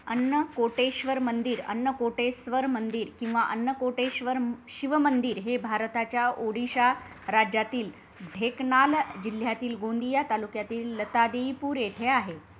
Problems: background sounds at intervals